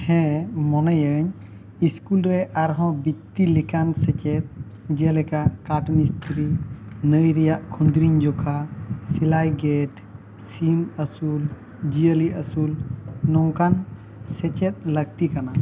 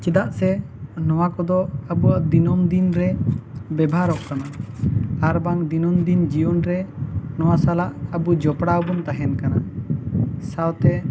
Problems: background sounds at intervals